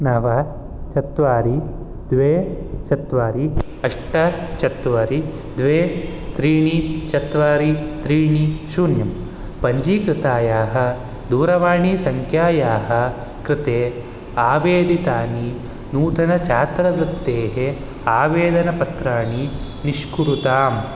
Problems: none marked